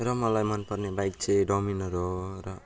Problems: low volume